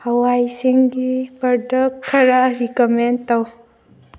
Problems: none marked